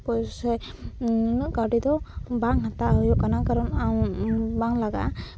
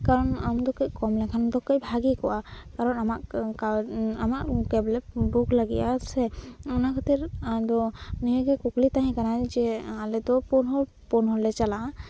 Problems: none marked